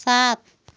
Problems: background sounds at intervals